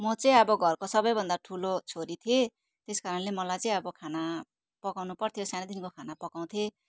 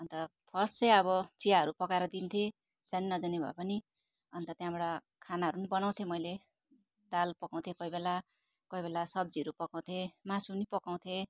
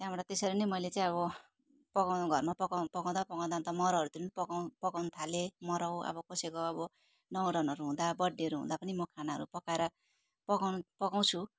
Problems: constant background noise